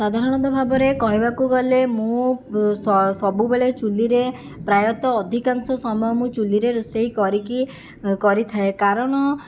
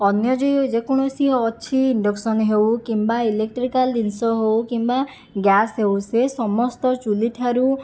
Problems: none marked